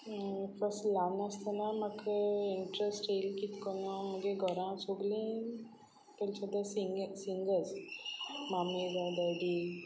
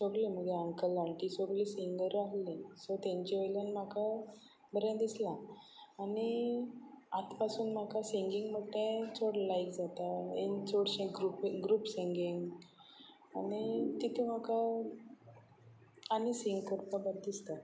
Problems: none marked